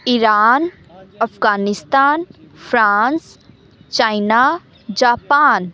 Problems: continuous background conversations